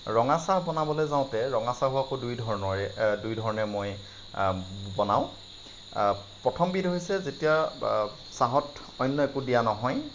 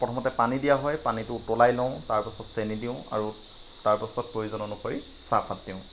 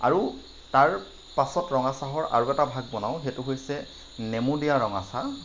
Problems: none marked